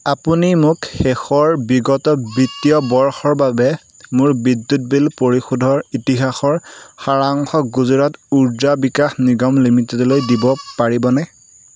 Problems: constant background noise